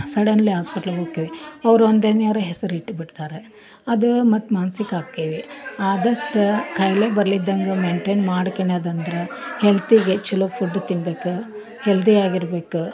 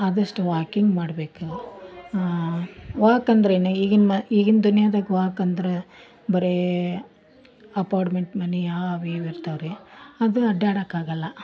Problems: background sounds at intervals, background conversations at intervals